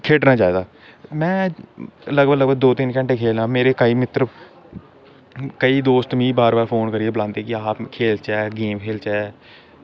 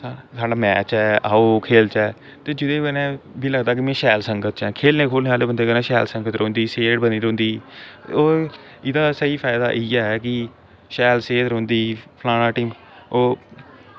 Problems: constant background noise